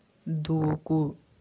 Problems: constant background noise